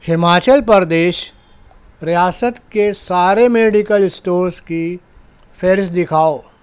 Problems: constant background noise